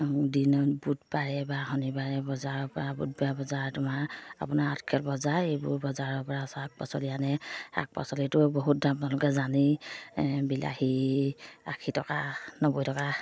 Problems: none marked